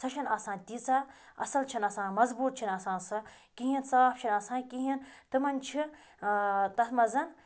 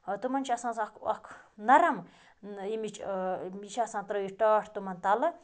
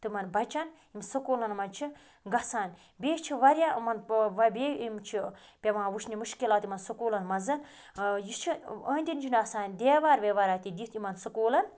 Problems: background sounds at intervals